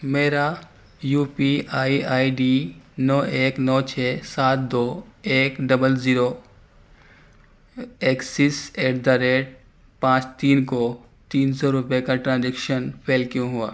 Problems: none marked